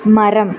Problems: constant background noise